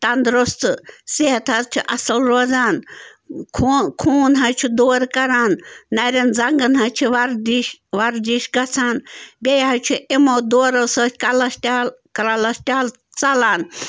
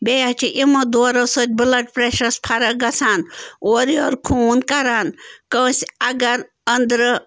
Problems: constant background noise